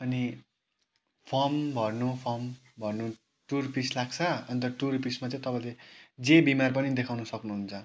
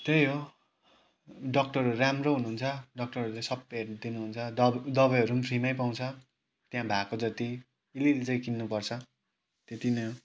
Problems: background sounds at intervals